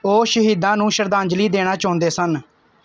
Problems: background sounds at intervals